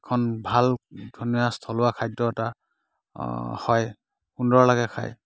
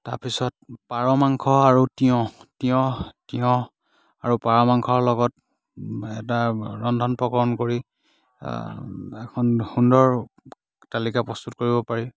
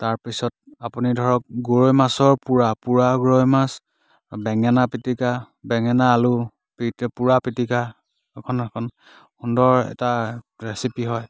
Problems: none marked